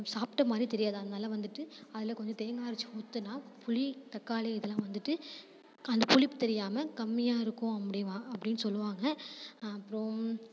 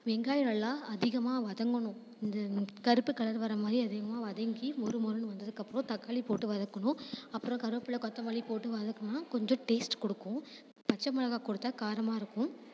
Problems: constant background noise